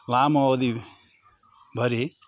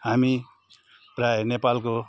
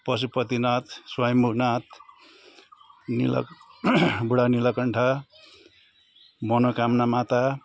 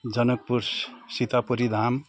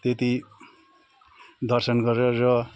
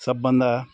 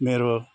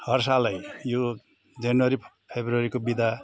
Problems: constant background noise, continuous background conversations